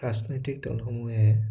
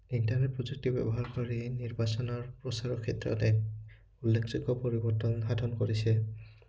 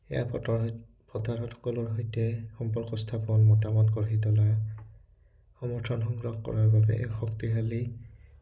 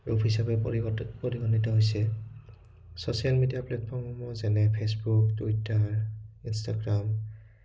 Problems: background sounds at intervals